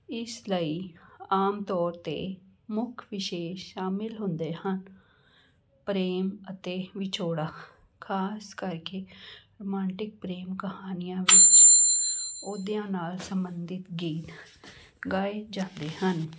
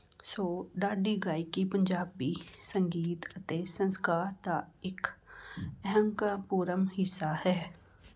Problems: constant background noise, continuous background conversations